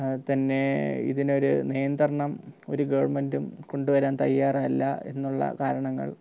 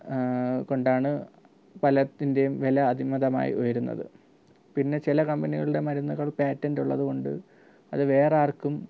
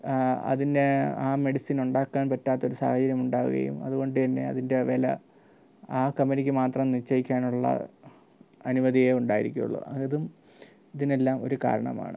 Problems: low volume